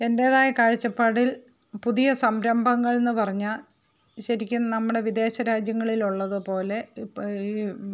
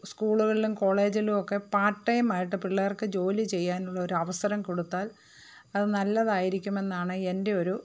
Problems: background sounds at intervals